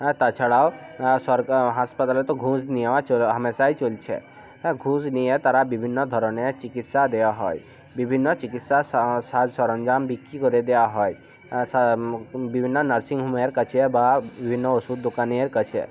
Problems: constant background noise